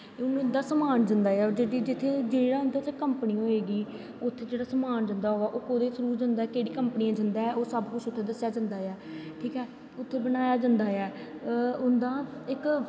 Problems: constant background noise, echo